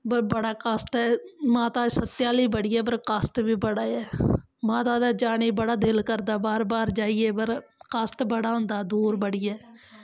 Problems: constant background noise